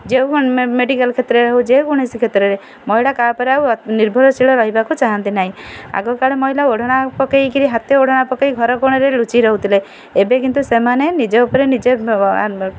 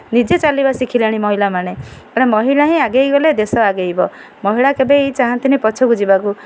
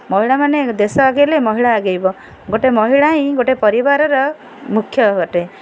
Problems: none marked